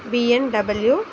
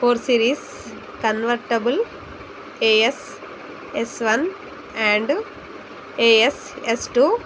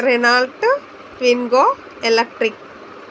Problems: none marked